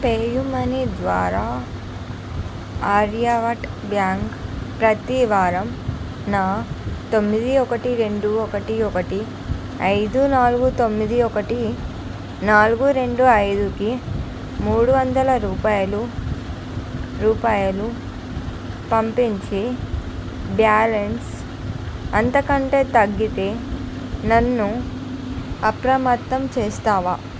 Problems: none marked